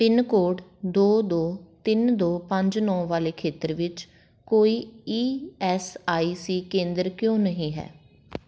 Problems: background sounds at intervals